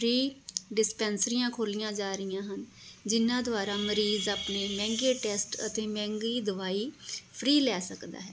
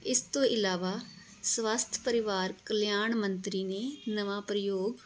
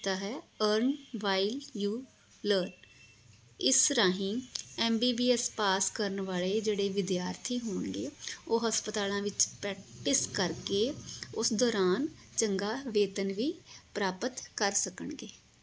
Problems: none marked